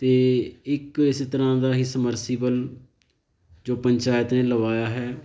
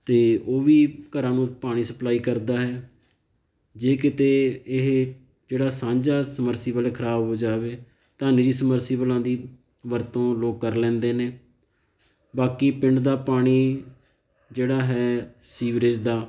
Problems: background sounds at intervals